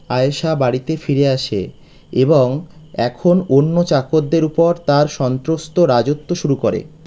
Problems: constant background noise